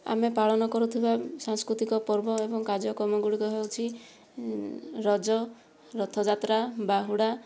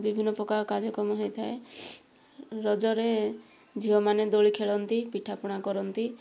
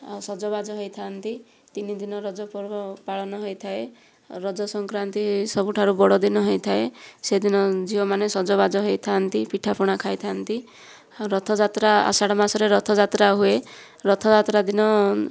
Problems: none marked